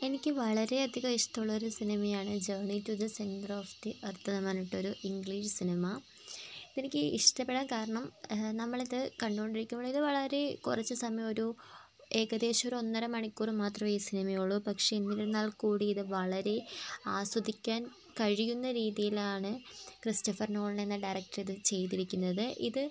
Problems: constant background noise, low volume